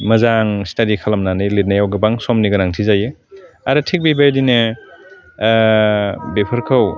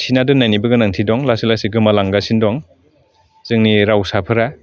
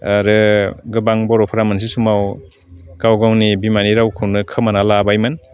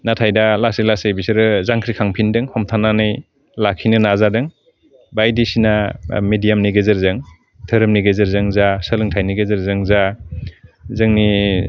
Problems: constant background noise